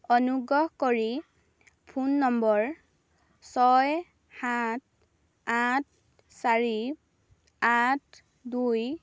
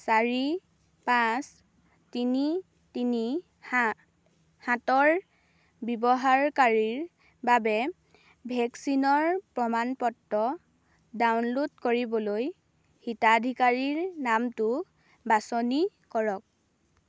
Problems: none marked